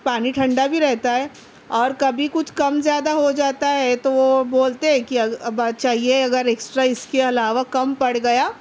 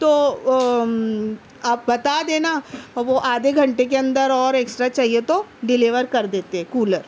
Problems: none marked